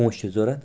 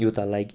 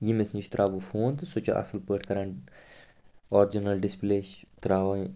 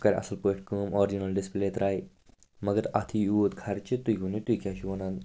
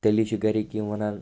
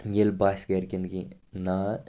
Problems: none marked